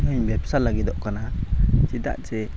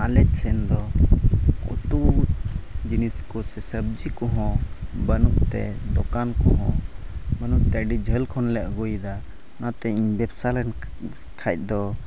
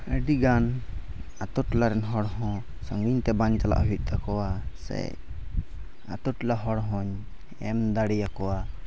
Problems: background sounds at intervals, low volume